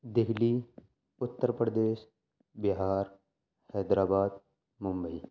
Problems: background sounds at intervals, low volume